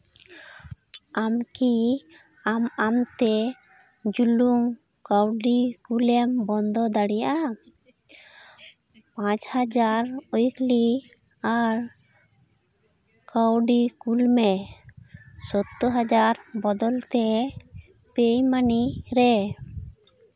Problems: background sounds at intervals, background conversations at intervals